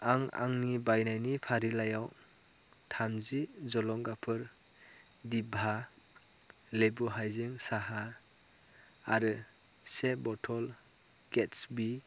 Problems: low volume